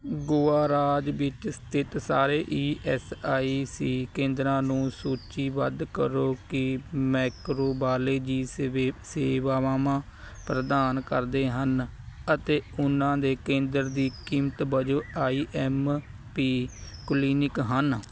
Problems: constant background noise